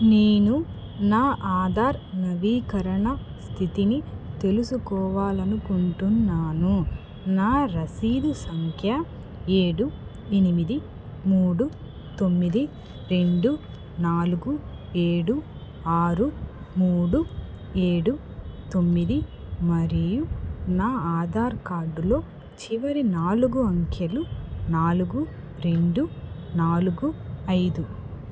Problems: background sounds at intervals